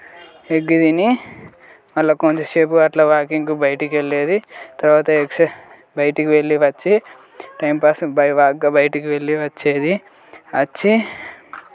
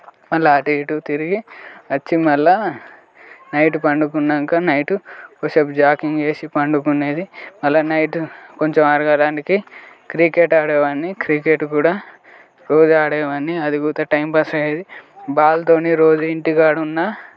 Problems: none marked